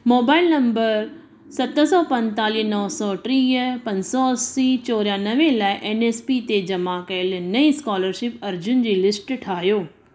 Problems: constant background noise, echo